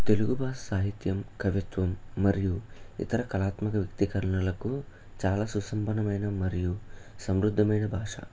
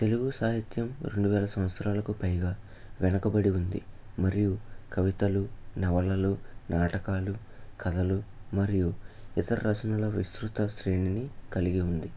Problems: none marked